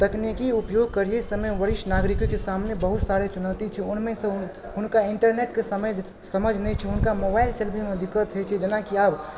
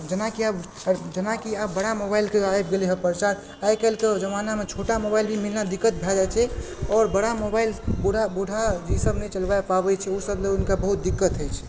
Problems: background sounds at intervals, background conversations at intervals